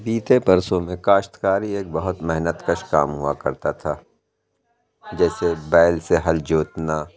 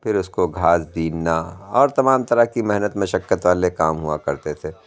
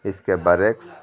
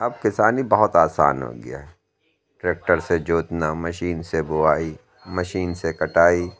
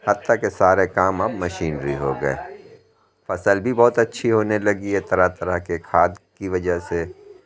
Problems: constant background noise